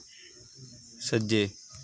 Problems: none marked